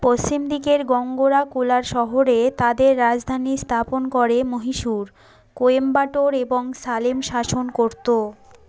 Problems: continuous background conversations